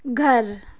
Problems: background sounds at intervals